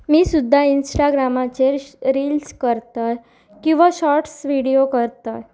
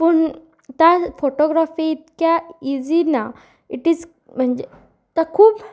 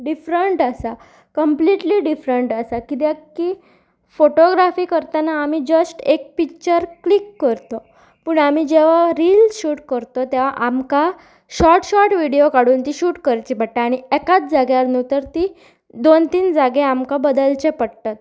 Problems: constant background noise